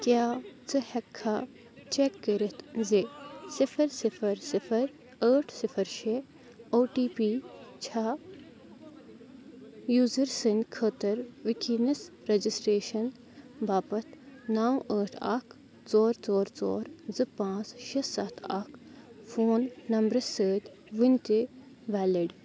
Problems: constant background noise, continuous background conversations